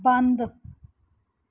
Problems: background sounds at intervals